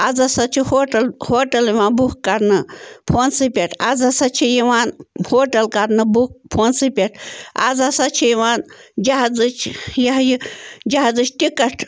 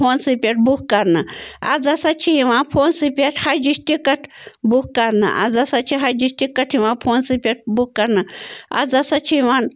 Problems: constant background noise